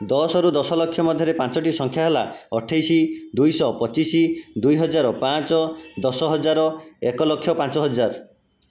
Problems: background sounds at intervals